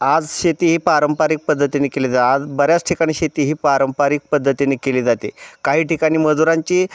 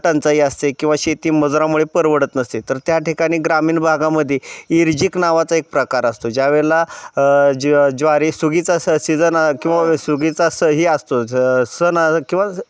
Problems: none marked